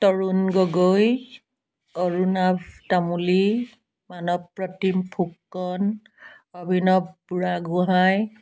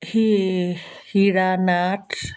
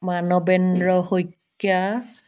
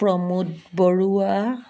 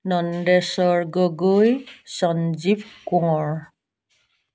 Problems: constant background noise